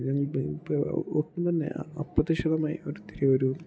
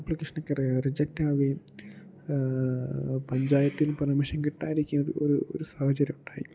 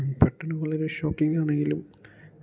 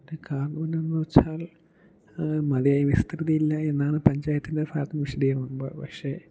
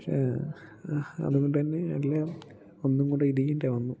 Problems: low volume